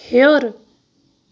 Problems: none marked